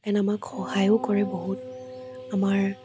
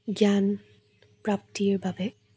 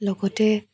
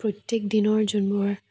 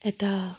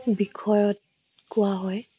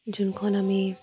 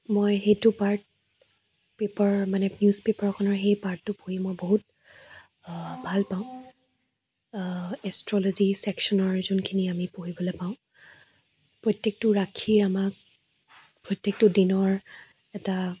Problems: low volume